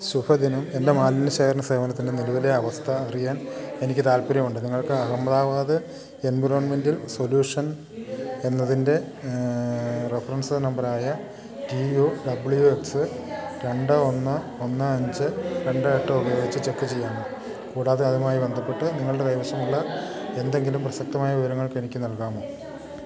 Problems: background sounds at intervals